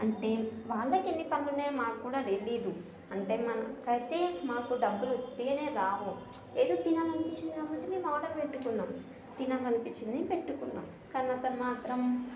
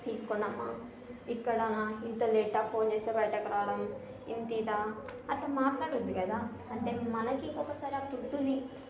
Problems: constant background noise, continuous background conversations, low volume